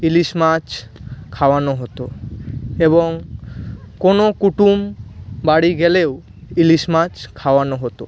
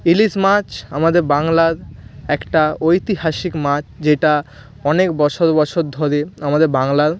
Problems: constant background noise